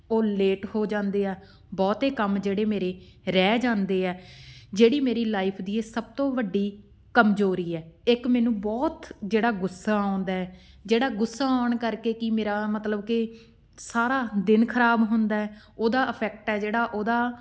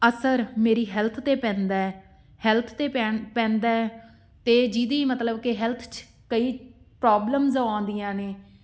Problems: background sounds at intervals